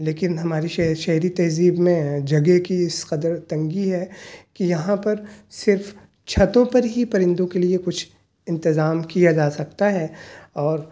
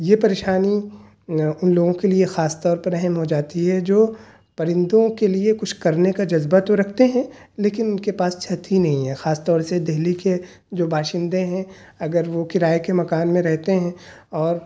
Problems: none marked